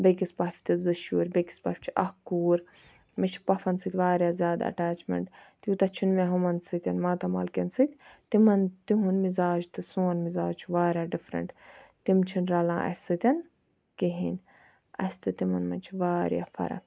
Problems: background sounds at intervals